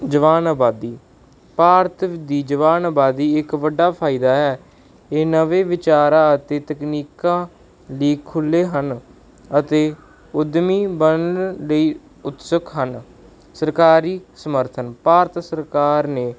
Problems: background sounds at intervals